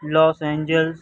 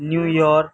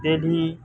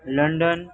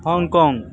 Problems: background conversations at intervals